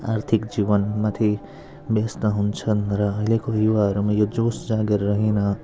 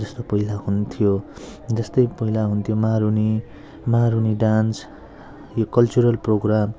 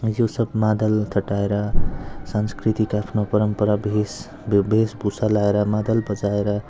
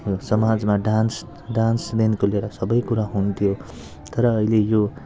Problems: low volume